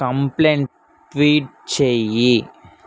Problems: background conversations at intervals